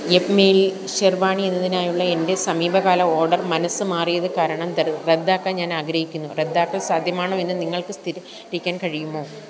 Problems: constant background noise